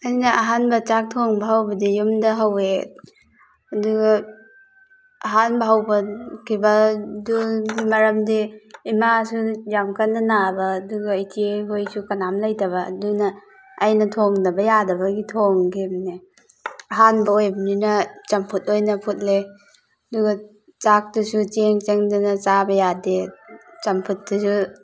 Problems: background sounds at intervals